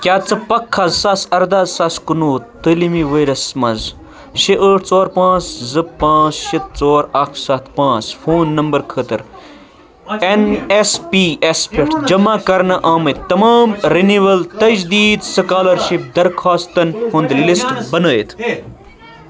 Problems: constant background noise